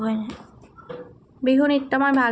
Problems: background sounds at intervals